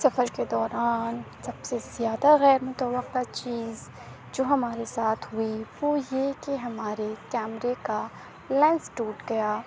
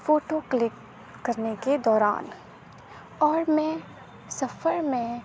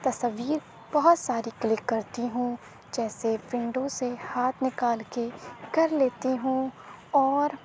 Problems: constant background noise, low volume